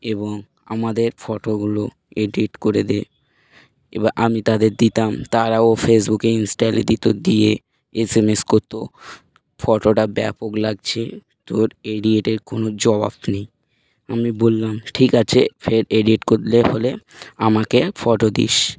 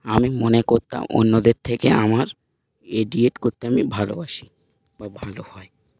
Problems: none marked